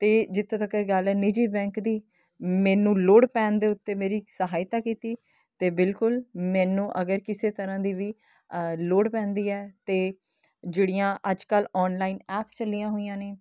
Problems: constant background noise